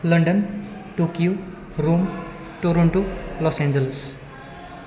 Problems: none marked